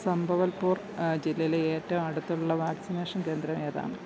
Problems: low volume